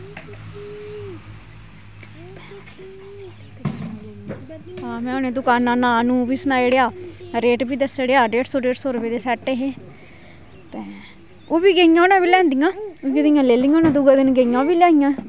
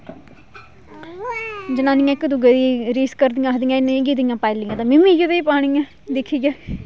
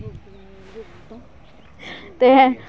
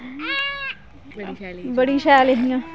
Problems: constant background noise